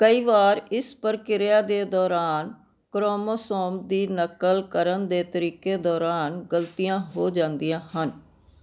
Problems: none marked